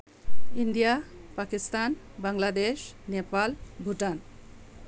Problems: none marked